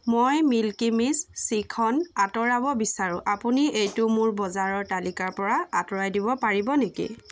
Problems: none marked